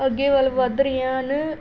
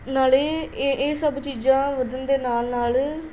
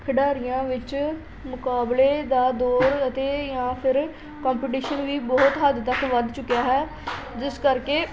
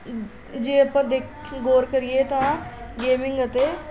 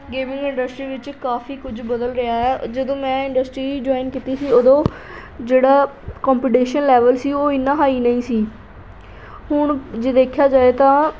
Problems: constant background noise